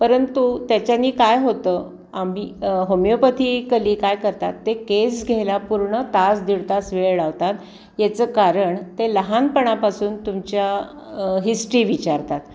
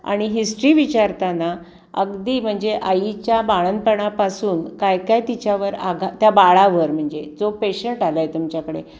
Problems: constant background noise, background conversations at intervals